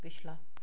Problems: background sounds at intervals